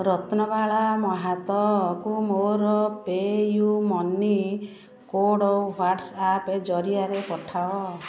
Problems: background sounds at intervals